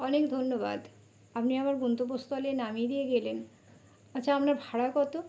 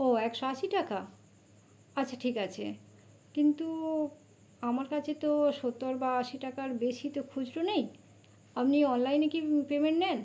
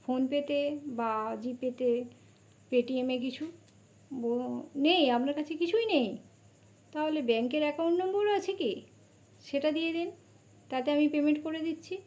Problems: constant background noise